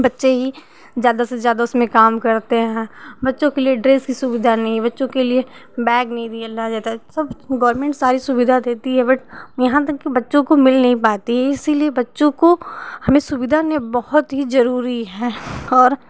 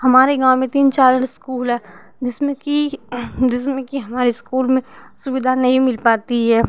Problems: none marked